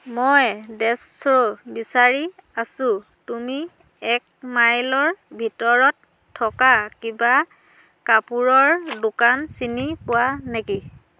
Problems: none marked